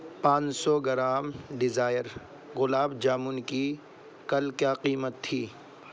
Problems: constant background noise